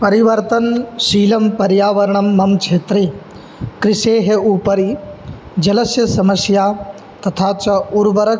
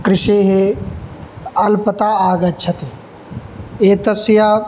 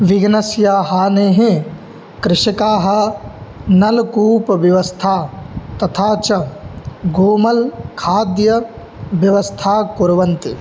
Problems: background sounds at intervals